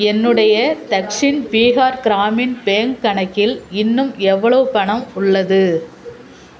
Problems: constant background noise, continuous background conversations